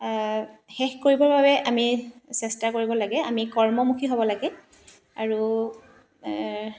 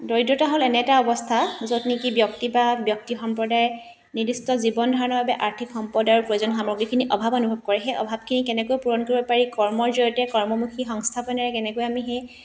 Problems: constant background noise